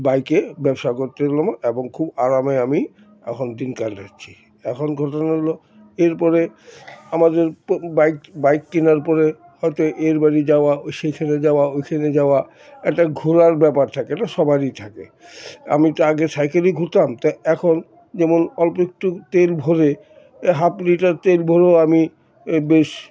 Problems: constant background noise, background conversations at intervals